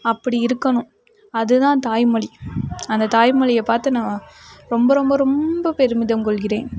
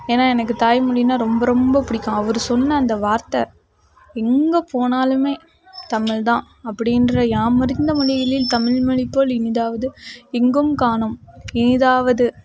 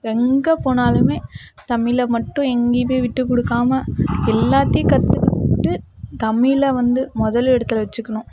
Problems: background sounds at intervals